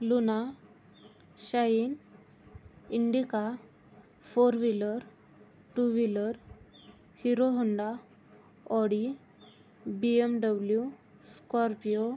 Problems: none marked